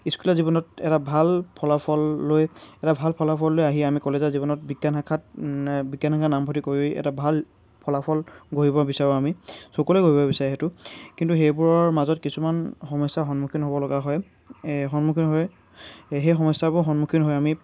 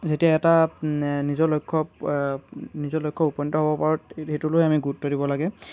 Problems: none marked